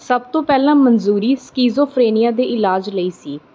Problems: none marked